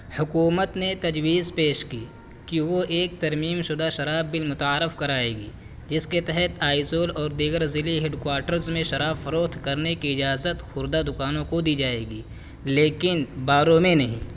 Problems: constant background noise